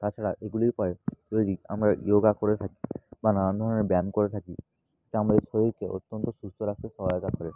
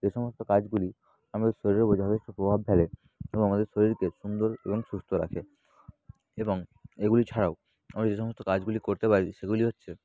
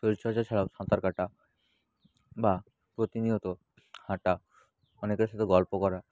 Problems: none marked